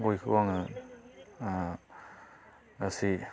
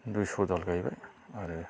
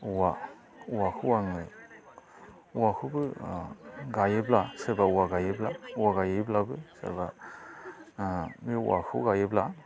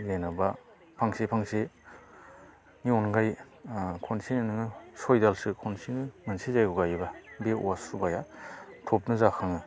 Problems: constant background noise